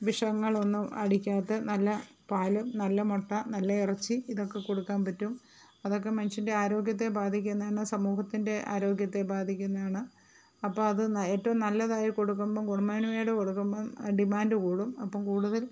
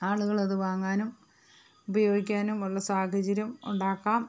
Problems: none marked